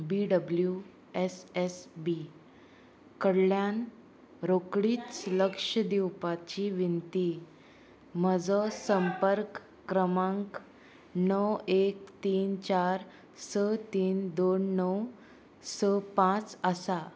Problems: constant background noise